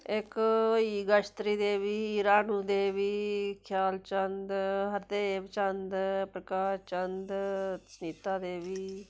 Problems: background sounds at intervals